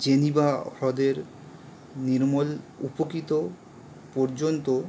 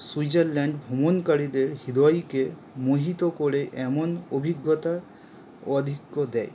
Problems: constant background noise